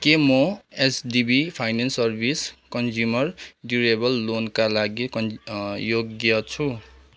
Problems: none marked